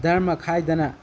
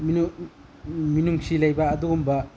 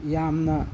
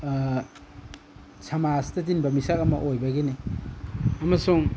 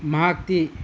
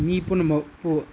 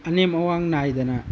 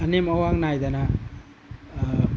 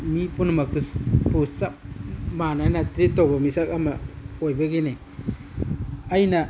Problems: background sounds at intervals